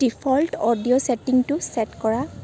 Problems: background sounds at intervals